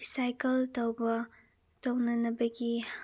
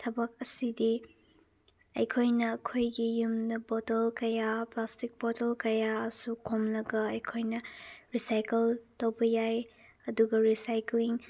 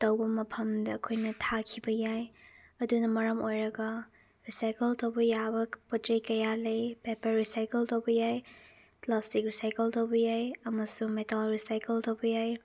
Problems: none marked